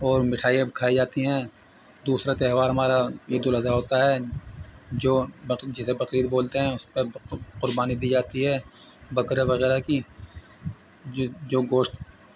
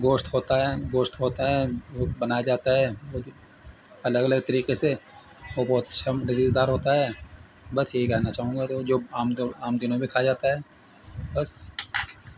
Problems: constant background noise